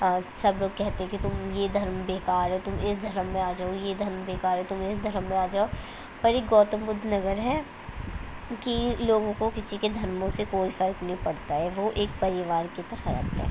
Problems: constant background noise